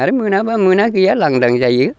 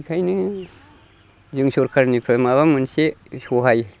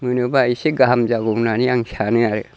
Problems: constant background noise